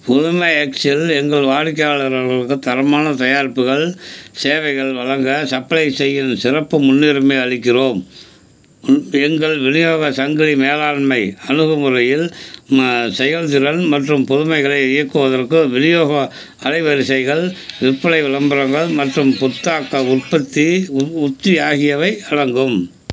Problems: none marked